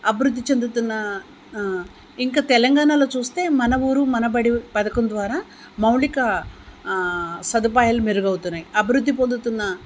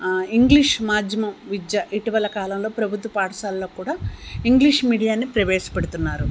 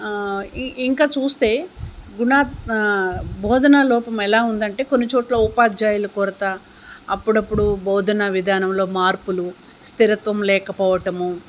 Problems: none marked